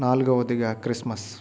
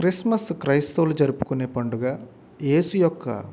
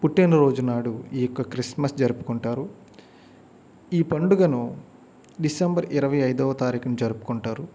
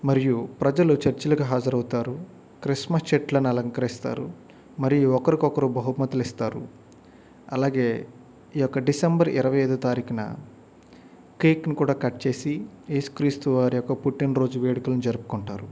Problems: background sounds at intervals